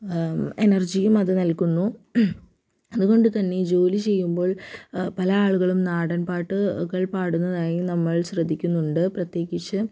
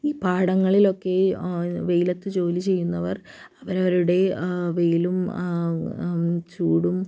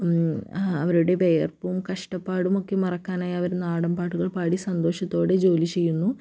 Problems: low volume